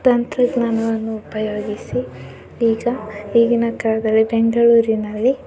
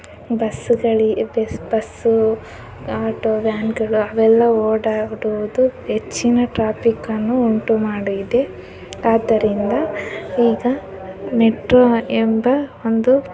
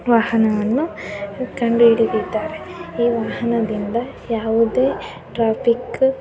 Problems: background sounds at intervals